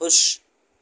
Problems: constant background noise